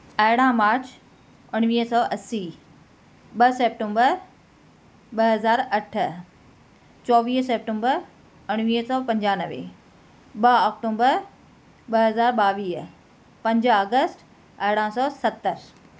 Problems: none marked